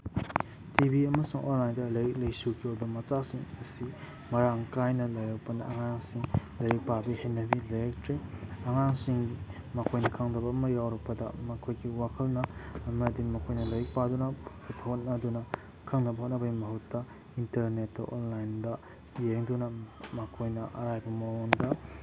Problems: background sounds at intervals